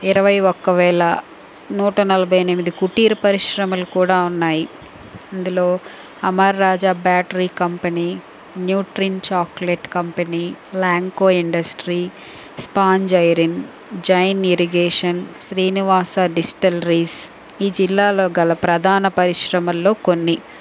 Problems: none marked